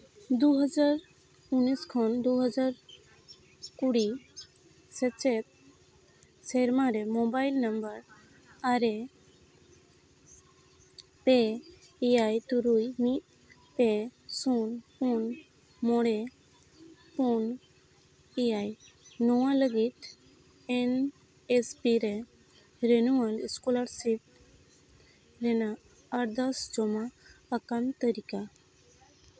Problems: background sounds at intervals, background conversations at intervals